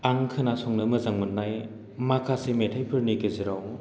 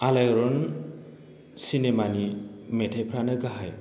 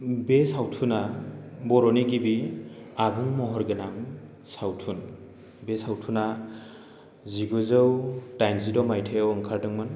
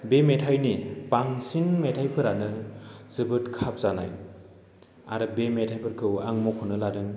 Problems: constant background noise